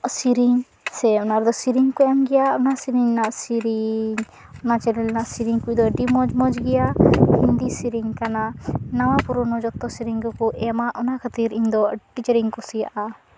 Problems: none marked